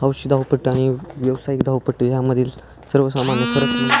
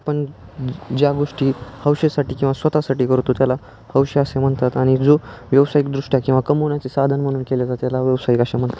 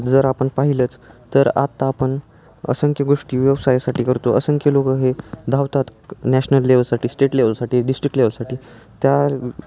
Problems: none marked